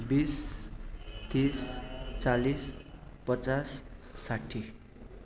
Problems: constant background noise